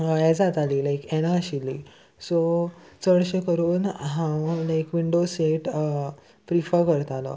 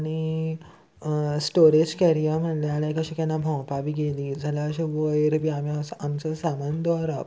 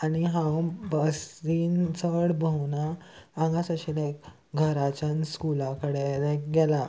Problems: constant background noise